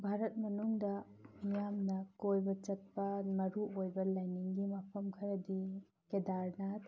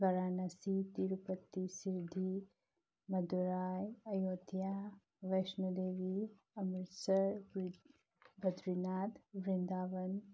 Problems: low volume